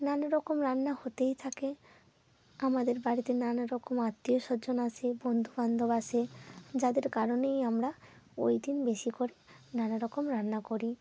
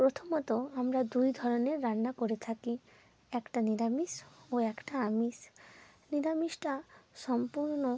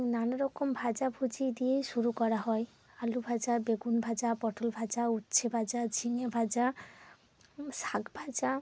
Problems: background sounds at intervals